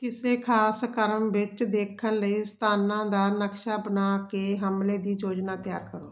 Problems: constant background noise